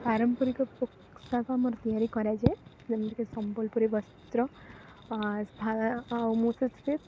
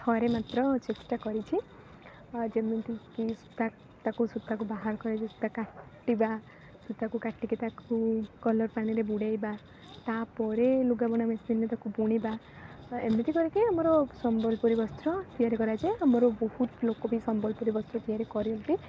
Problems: constant background noise